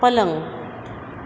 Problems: background sounds at intervals